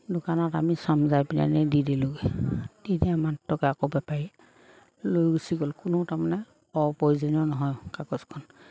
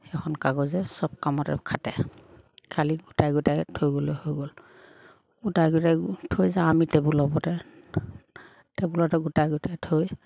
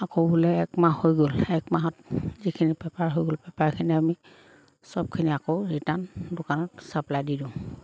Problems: constant background noise, background conversations at intervals